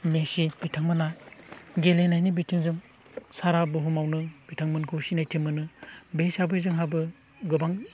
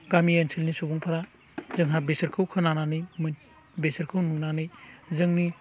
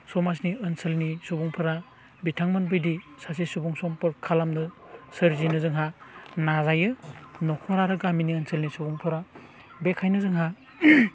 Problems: none marked